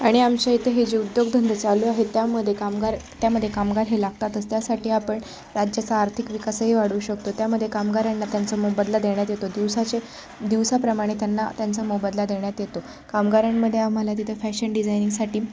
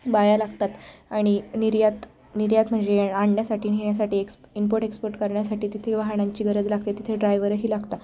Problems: none marked